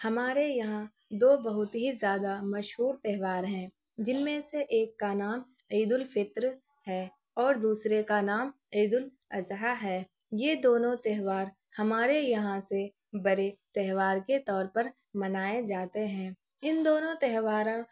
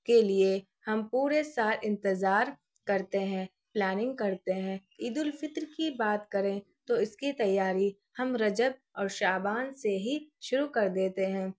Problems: none marked